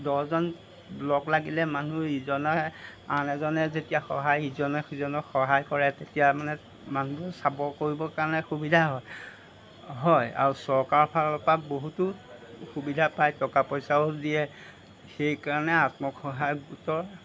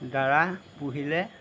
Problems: background sounds at intervals